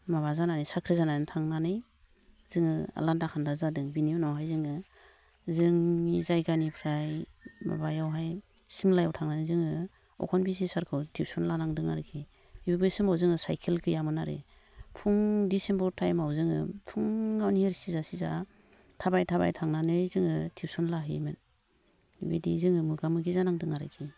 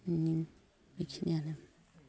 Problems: none marked